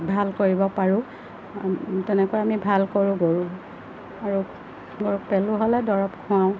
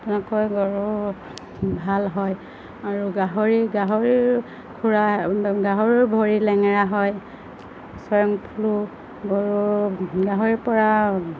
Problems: constant background noise, low volume